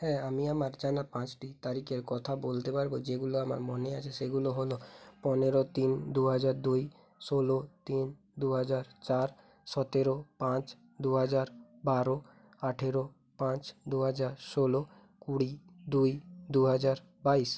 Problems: background sounds at intervals